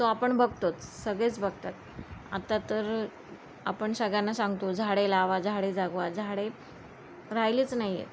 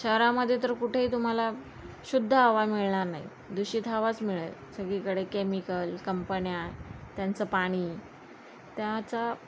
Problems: none marked